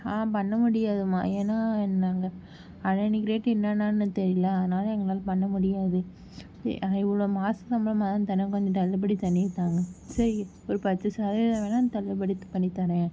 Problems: background sounds at intervals